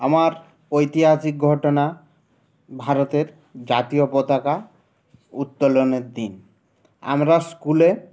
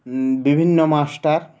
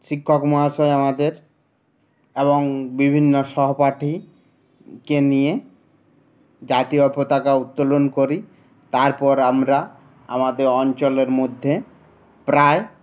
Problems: none marked